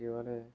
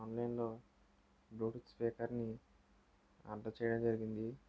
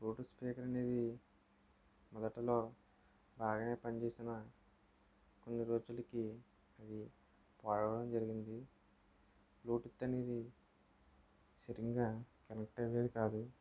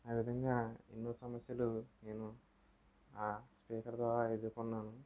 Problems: low volume